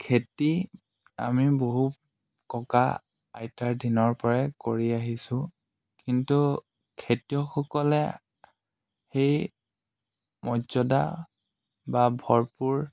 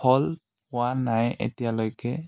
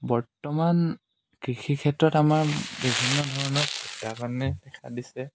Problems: none marked